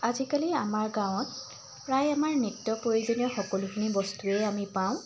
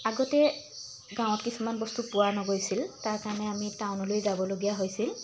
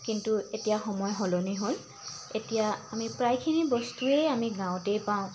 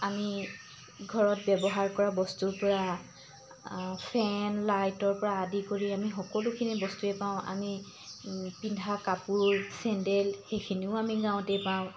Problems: constant background noise